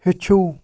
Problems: none marked